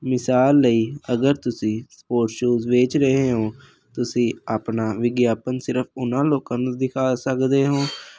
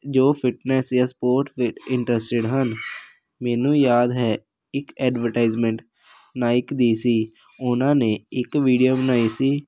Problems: none marked